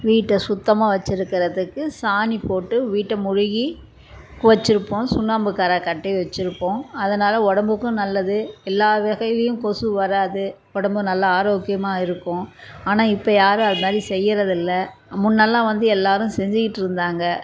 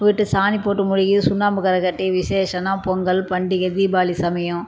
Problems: background sounds at intervals